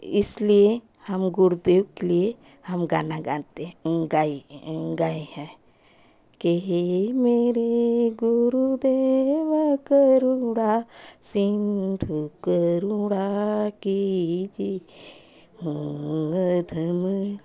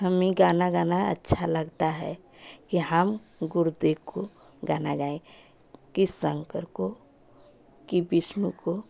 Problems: none marked